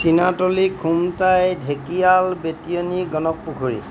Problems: background sounds at intervals